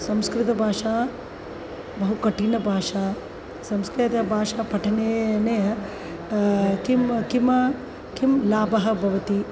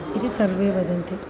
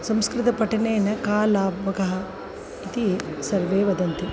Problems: constant background noise